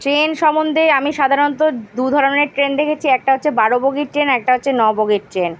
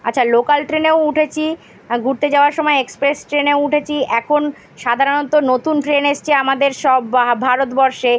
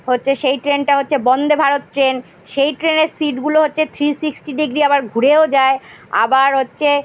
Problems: none marked